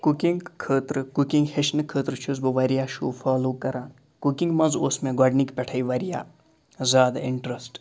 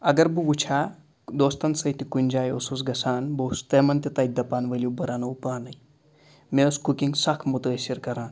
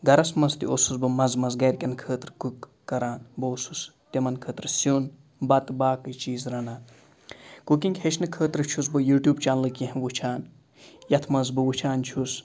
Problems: background sounds at intervals